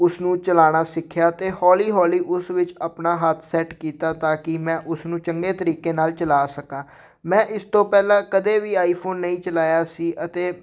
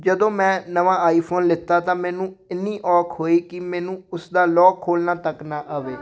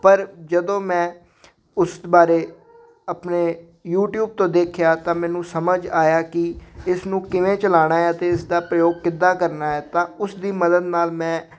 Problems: background conversations at intervals